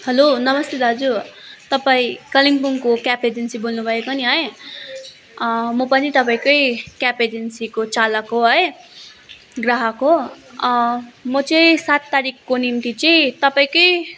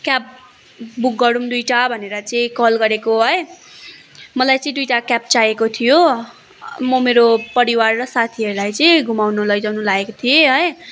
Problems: continuous background conversations